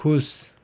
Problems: none marked